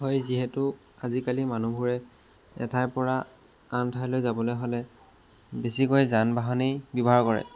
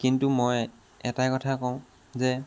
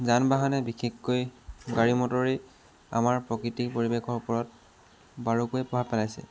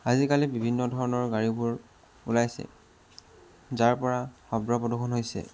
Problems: constant background noise